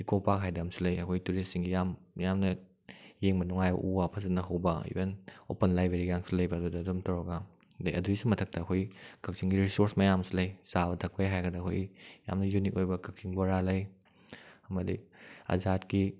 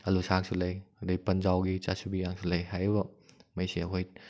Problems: none marked